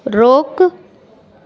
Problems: constant background noise